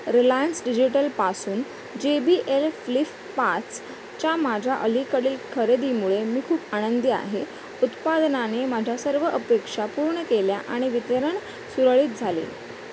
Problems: constant background noise